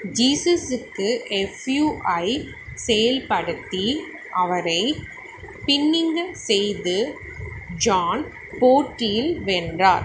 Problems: none marked